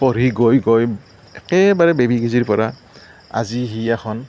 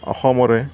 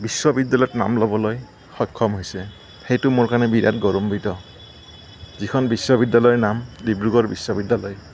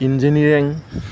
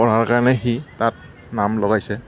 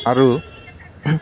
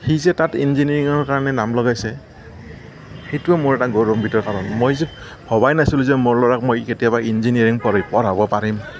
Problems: none marked